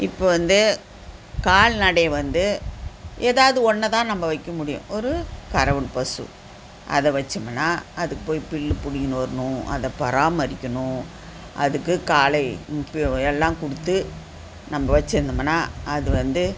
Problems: constant background noise